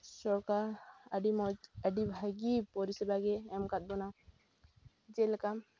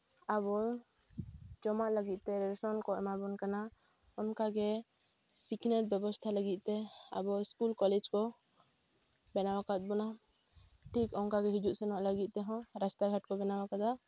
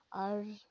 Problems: background sounds at intervals